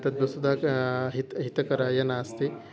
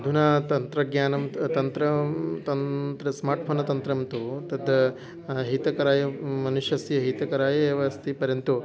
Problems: continuous background conversations